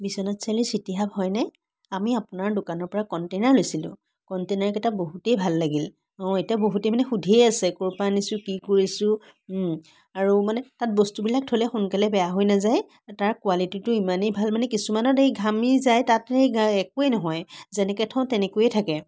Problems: constant background noise